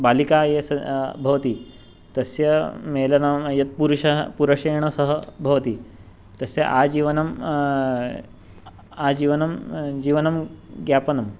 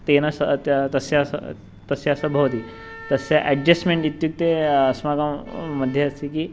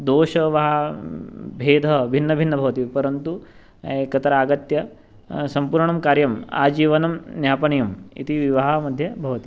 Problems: background sounds at intervals